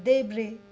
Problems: constant background noise